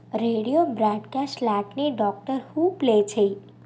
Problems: constant background noise